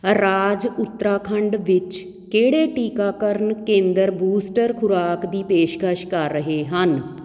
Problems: background sounds at intervals